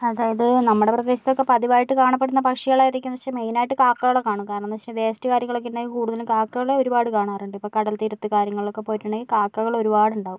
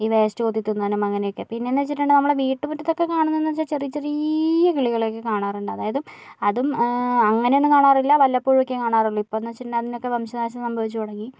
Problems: none marked